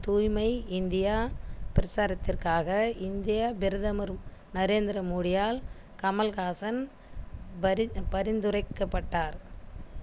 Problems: constant background noise